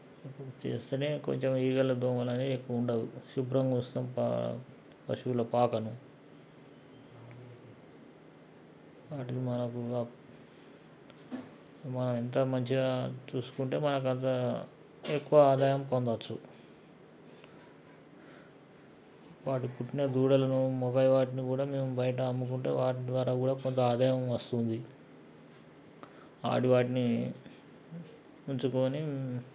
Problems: background sounds at intervals